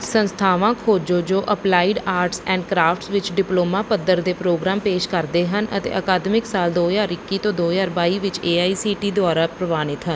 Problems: background sounds at intervals